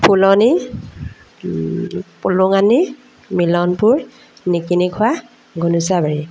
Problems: background conversations at intervals